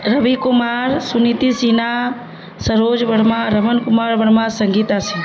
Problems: constant background noise, low volume